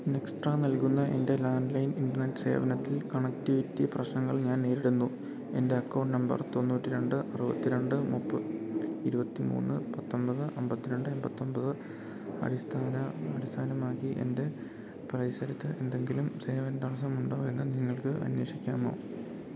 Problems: background sounds at intervals